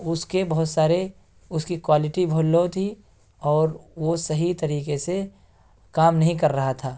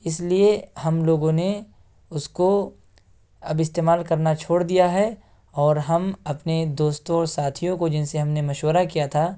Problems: background sounds at intervals